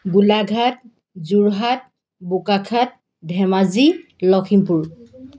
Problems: background sounds at intervals